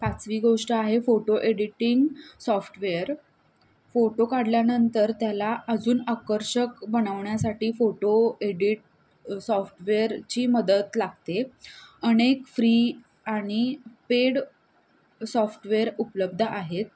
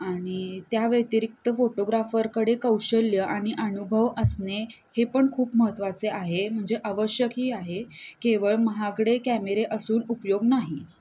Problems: none marked